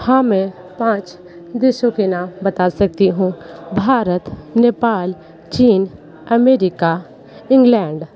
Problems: background conversations at intervals